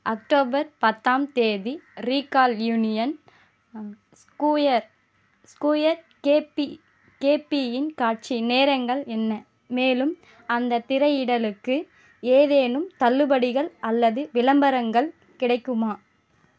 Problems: constant background noise